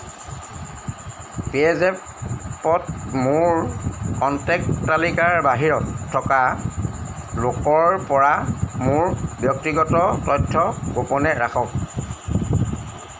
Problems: none marked